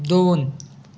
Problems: background sounds at intervals